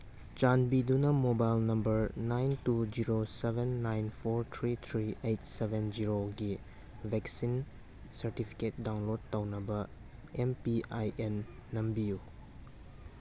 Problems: none marked